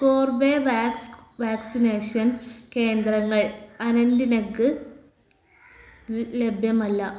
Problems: background sounds at intervals